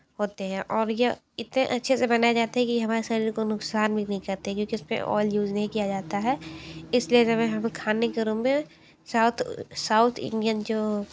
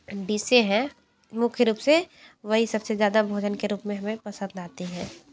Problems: none marked